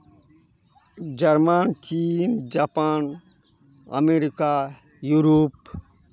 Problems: continuous background conversations